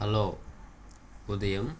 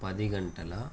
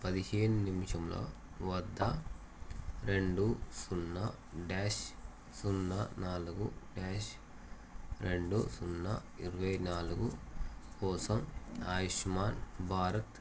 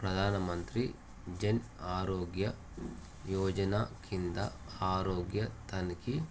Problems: constant background noise